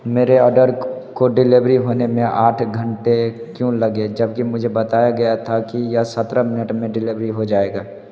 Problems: background sounds at intervals